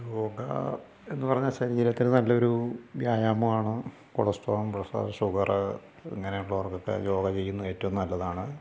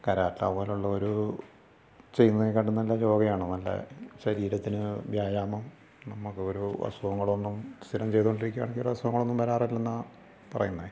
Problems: low volume